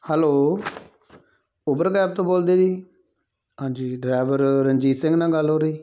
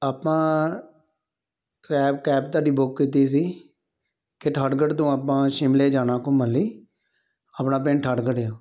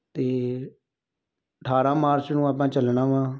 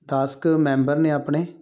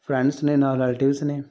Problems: none marked